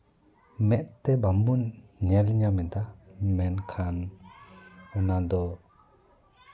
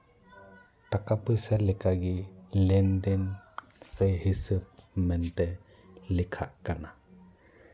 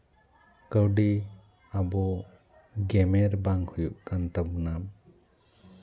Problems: background conversations at intervals